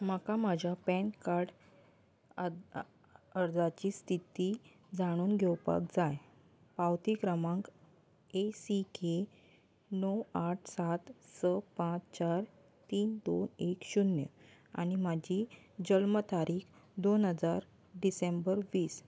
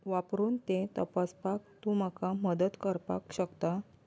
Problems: constant background noise